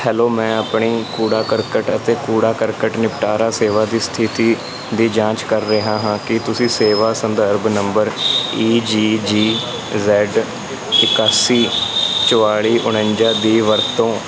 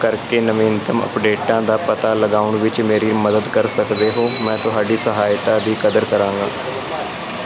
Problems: none marked